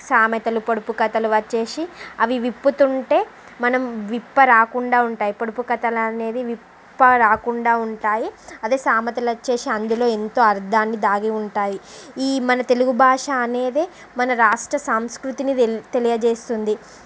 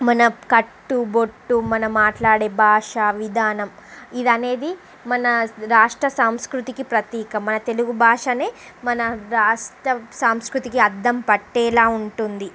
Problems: constant background noise